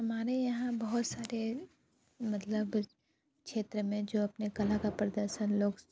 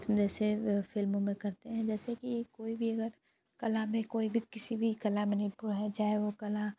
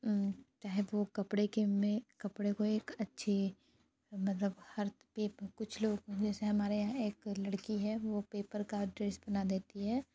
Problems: constant background noise